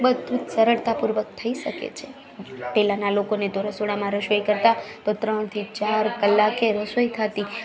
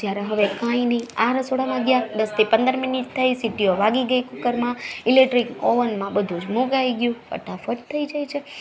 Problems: none marked